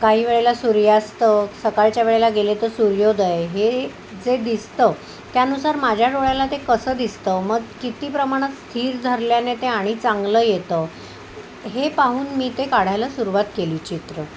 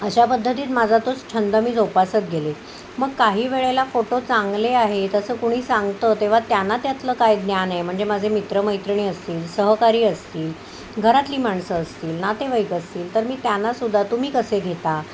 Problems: none marked